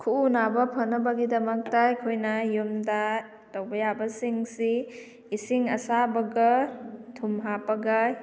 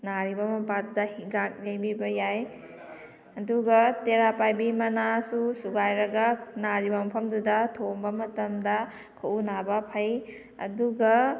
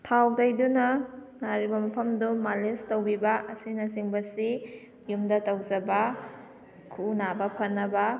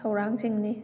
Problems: background sounds at intervals